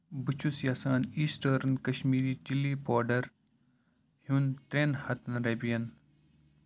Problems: background sounds at intervals